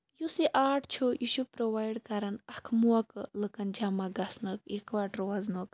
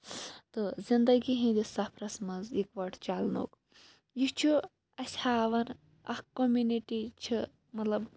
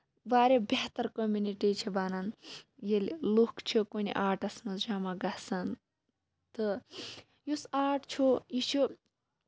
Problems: low volume